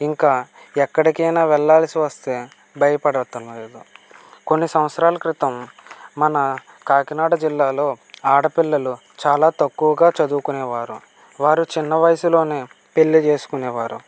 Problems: none marked